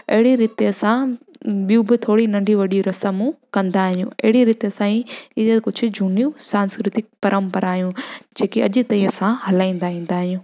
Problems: constant background noise